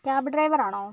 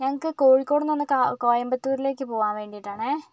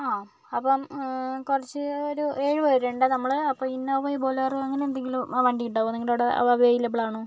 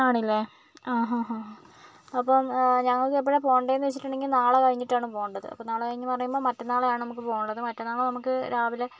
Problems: background sounds at intervals